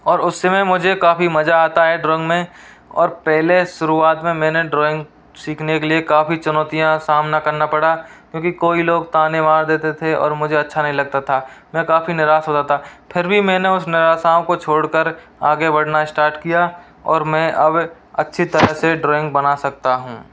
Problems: none marked